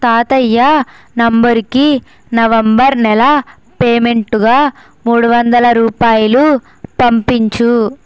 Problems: constant background noise